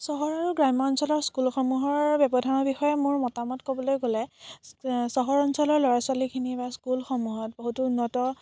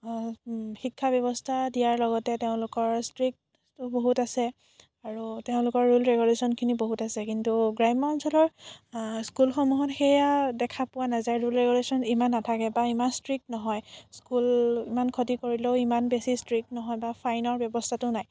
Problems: none marked